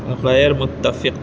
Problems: none marked